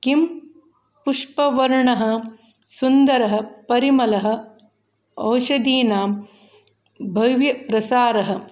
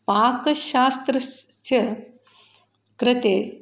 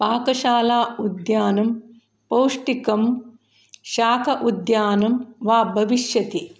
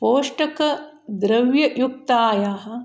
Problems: background sounds at intervals